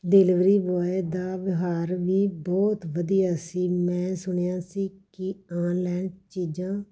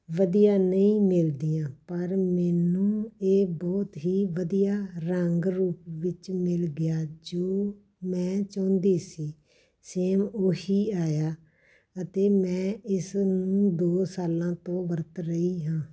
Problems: none marked